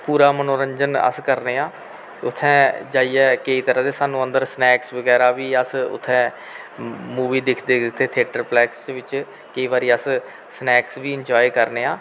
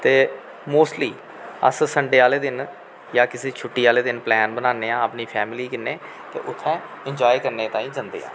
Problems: constant background noise